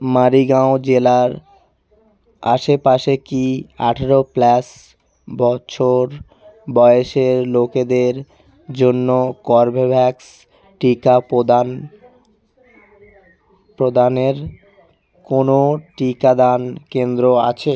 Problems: constant background noise